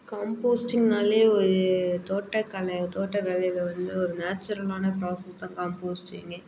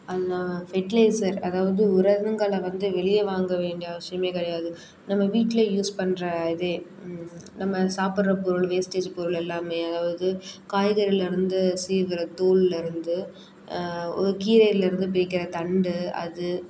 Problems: none marked